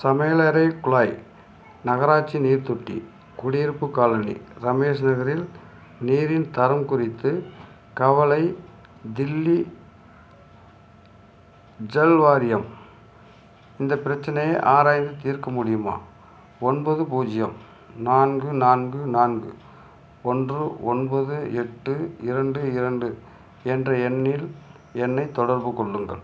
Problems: none marked